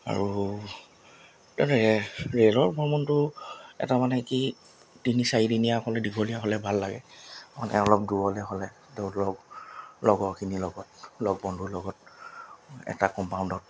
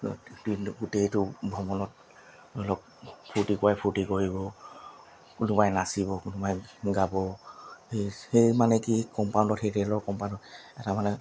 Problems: none marked